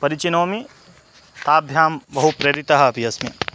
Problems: constant background noise